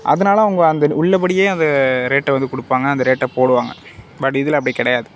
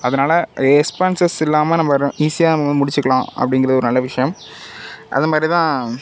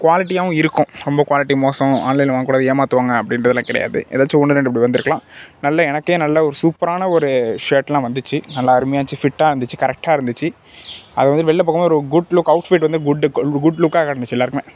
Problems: background sounds at intervals